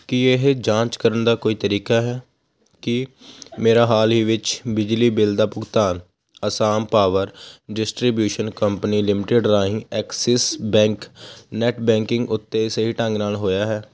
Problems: constant background noise